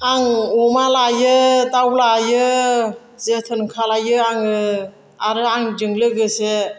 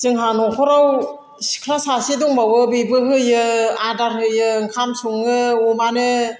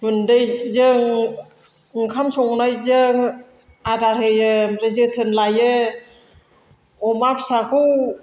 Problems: constant background noise